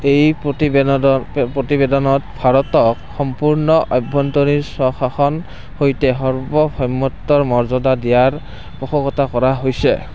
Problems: constant background noise